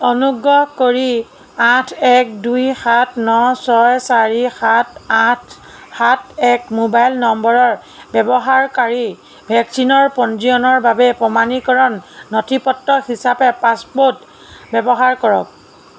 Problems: none marked